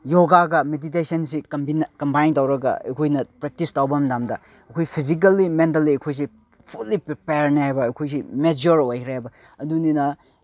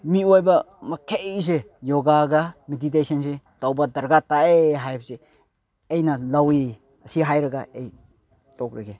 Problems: none marked